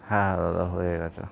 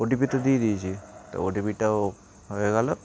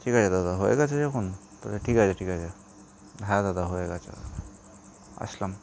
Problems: constant background noise